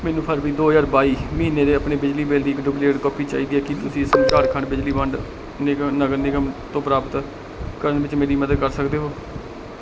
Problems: background sounds at intervals